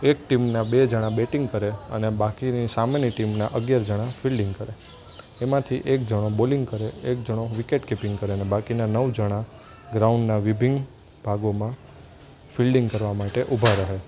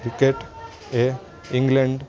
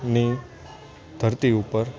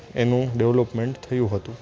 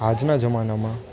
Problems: constant background noise, continuous background conversations